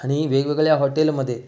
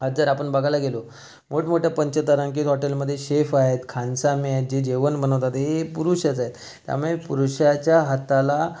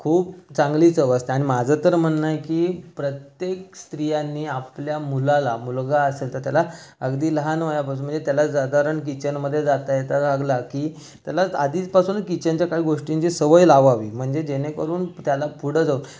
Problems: constant background noise